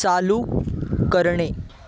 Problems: constant background noise, continuous background conversations